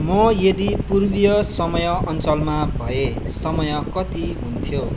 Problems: constant background noise